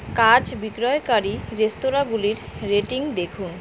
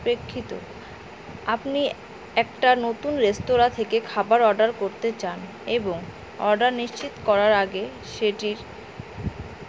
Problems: constant background noise